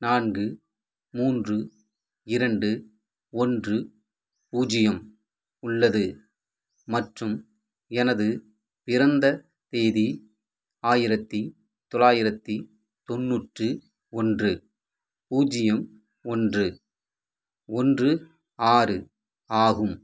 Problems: none marked